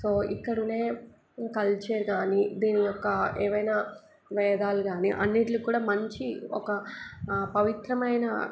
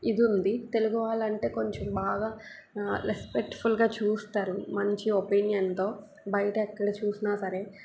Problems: background sounds at intervals